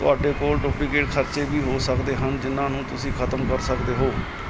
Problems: background sounds at intervals